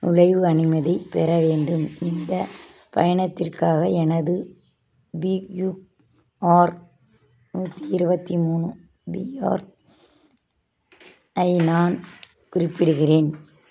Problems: background sounds at intervals